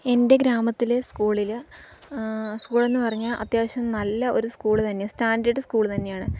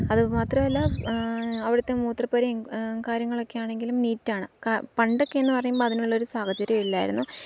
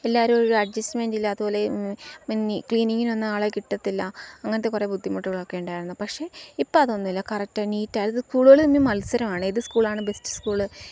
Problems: low volume